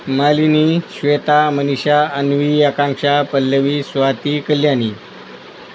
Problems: constant background noise